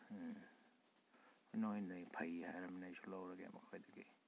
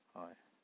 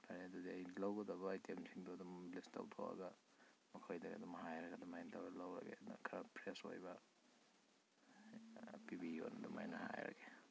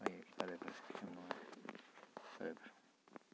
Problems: low volume